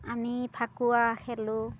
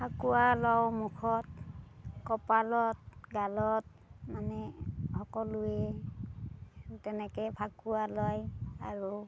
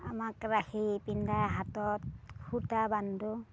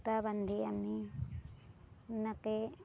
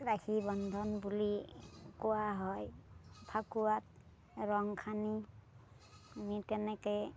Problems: none marked